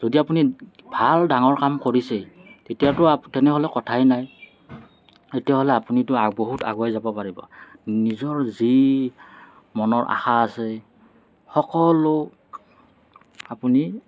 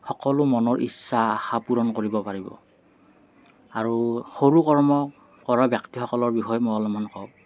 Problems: none marked